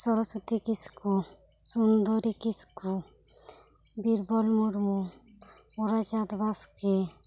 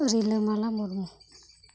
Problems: none marked